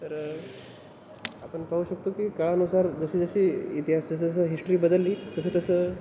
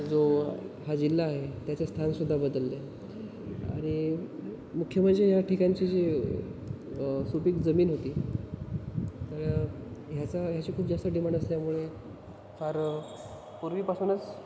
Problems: constant background noise